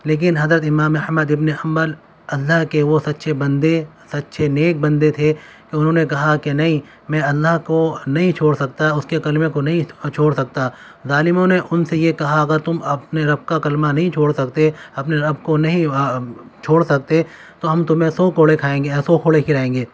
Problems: constant background noise